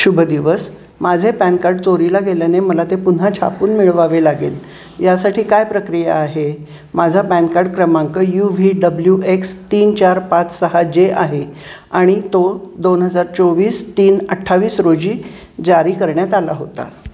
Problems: constant background noise, continuous background conversations